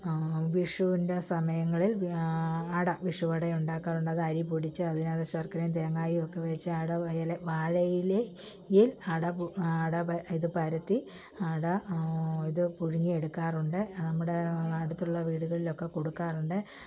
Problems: low volume